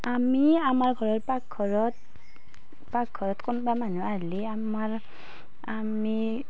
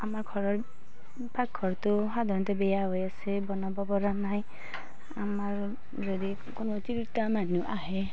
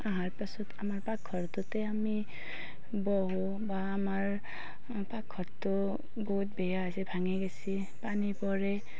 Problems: constant background noise